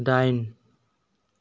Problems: none marked